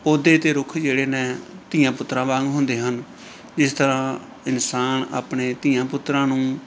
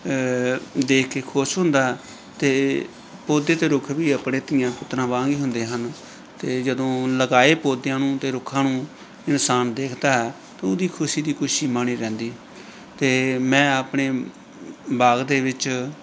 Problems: background conversations at intervals